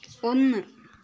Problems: low volume